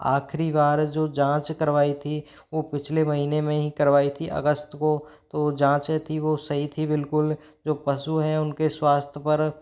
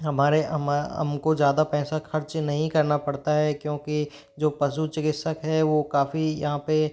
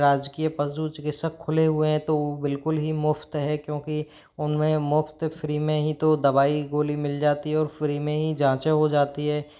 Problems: none marked